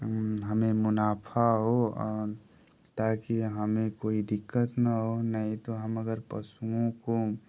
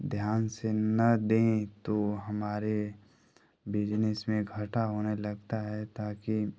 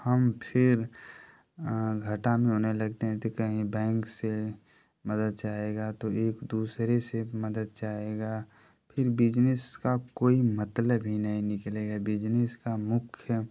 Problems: constant background noise